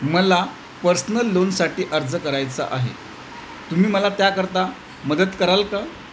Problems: constant background noise